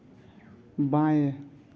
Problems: constant background noise, low volume